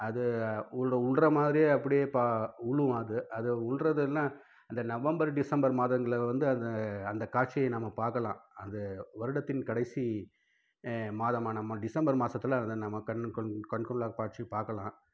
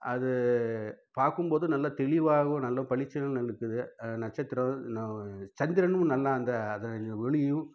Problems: low volume